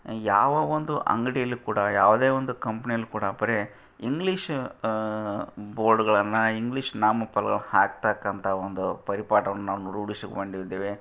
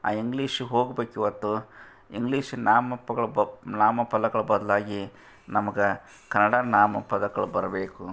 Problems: none marked